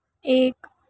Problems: none marked